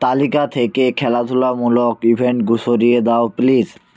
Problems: none marked